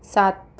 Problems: none marked